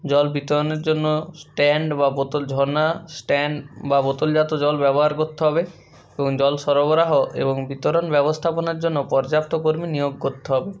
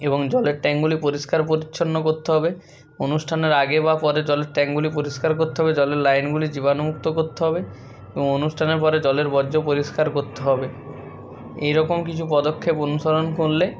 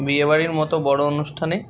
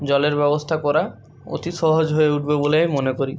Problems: background sounds at intervals